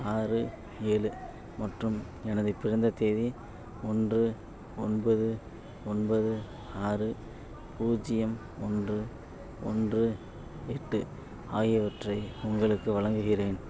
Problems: none marked